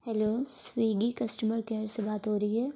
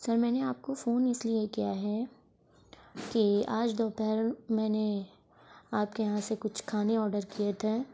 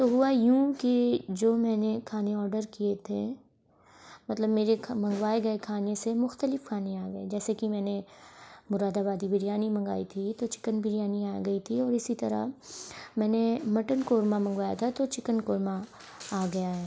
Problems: background sounds at intervals